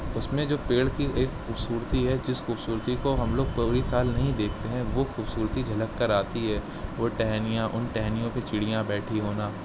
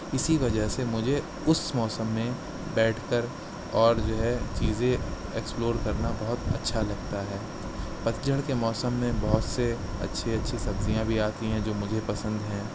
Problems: none marked